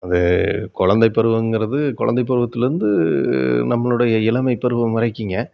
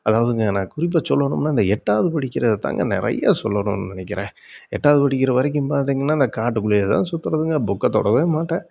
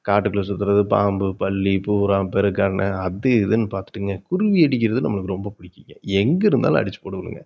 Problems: background sounds at intervals